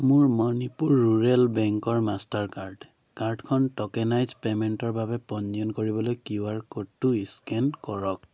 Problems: constant background noise